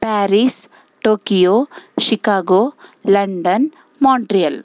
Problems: background sounds at intervals